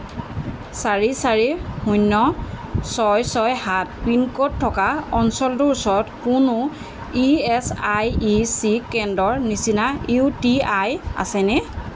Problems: constant background noise